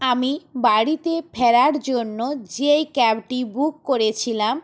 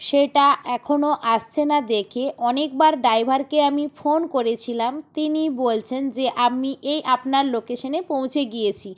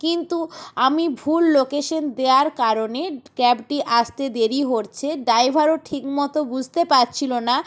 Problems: none marked